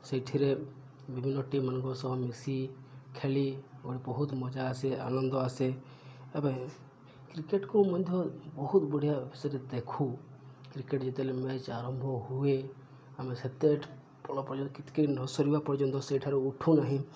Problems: low volume